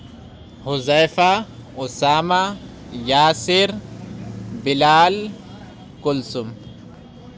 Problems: constant background noise